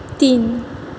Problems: none marked